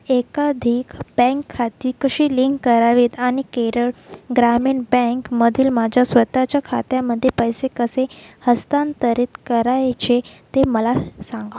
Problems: constant background noise